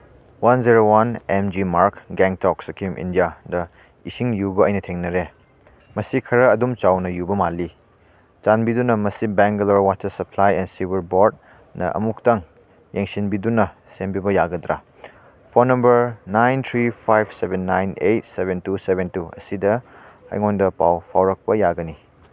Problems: none marked